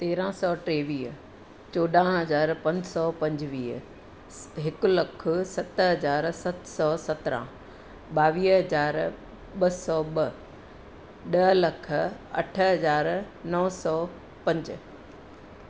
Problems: constant background noise, low volume